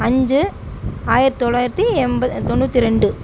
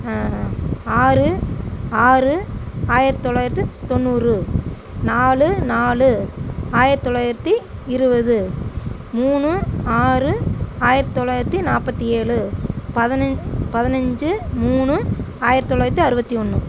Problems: background sounds at intervals